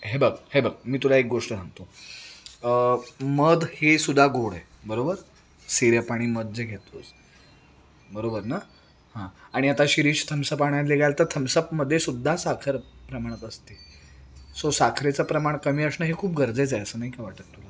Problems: background sounds at intervals